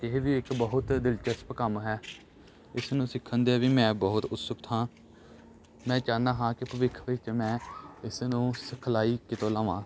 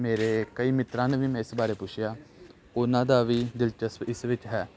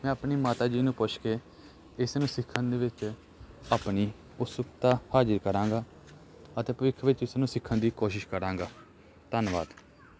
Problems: background sounds at intervals